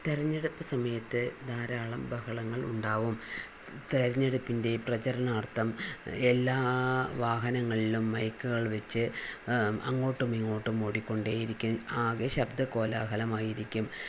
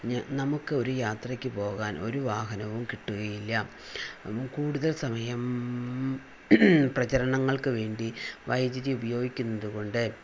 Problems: none marked